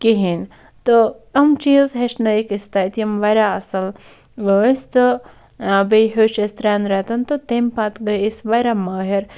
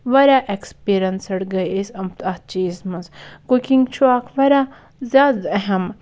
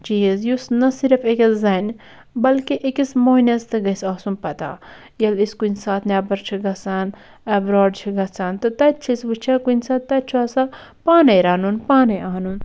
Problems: none marked